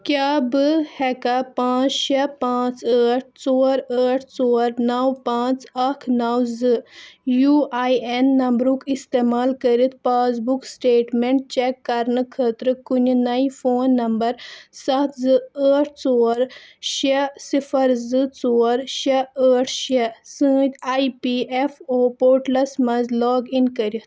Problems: none marked